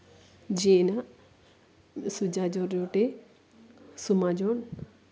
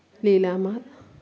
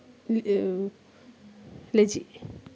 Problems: background conversations at intervals, low volume